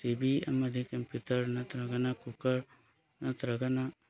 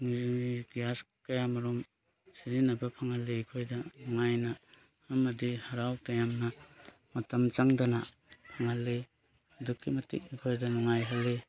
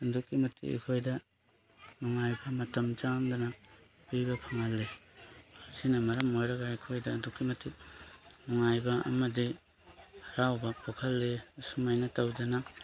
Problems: none marked